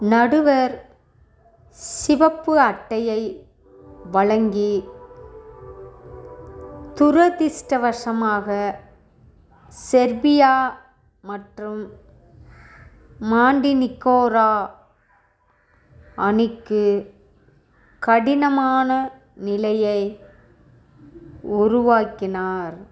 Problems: background sounds at intervals